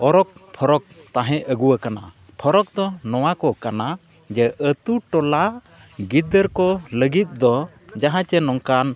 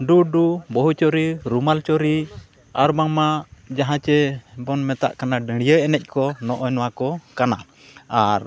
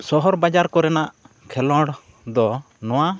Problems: continuous background conversations